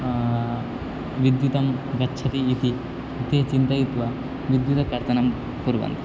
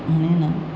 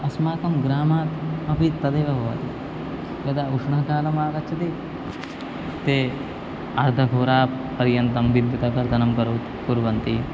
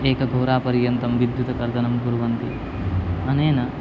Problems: constant background noise